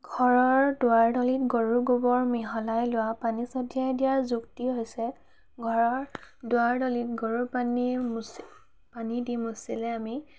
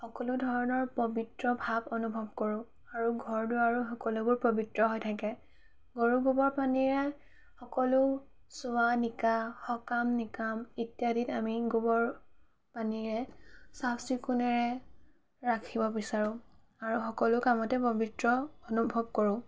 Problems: background sounds at intervals, background conversations at intervals